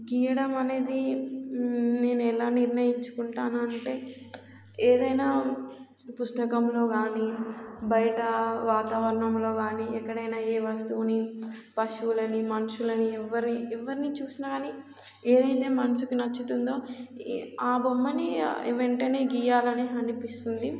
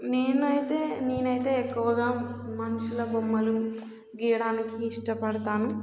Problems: constant background noise